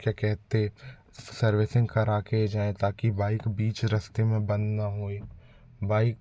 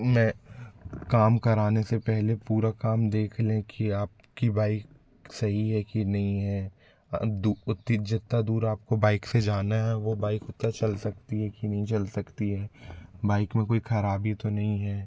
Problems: constant background noise, background conversations at intervals